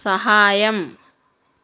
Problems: none marked